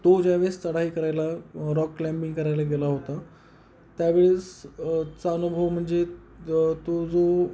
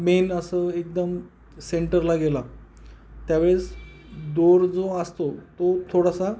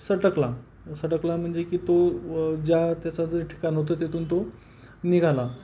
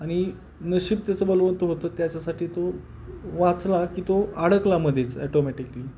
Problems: background sounds at intervals